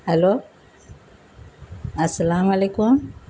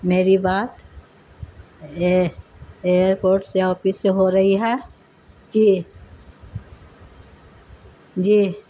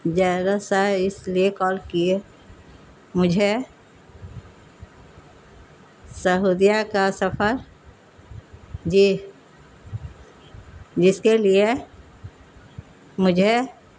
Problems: constant background noise